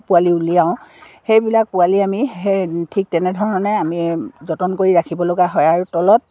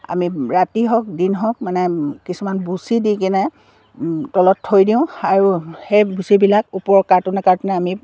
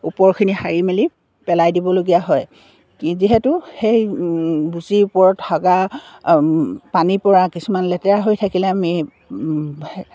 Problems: none marked